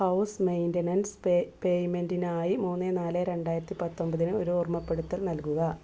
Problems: background sounds at intervals